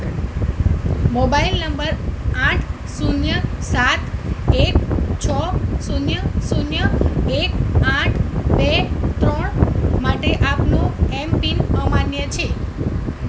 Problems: constant background noise